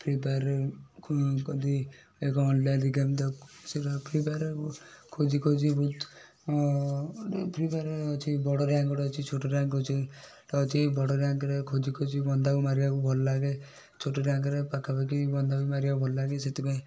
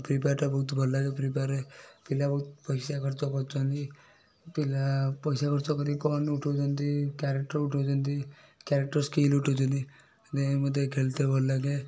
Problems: none marked